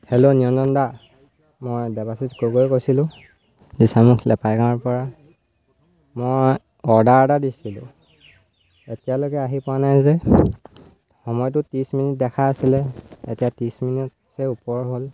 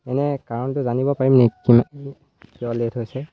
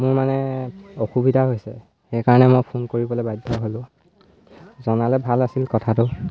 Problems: constant background noise